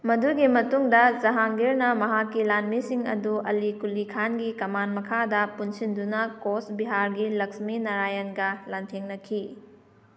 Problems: none marked